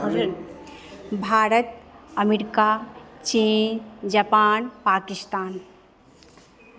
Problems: none marked